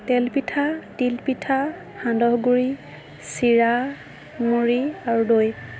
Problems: none marked